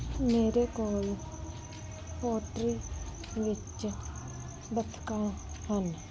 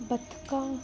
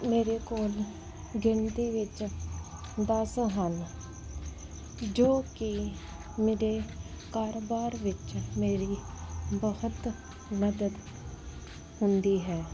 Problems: constant background noise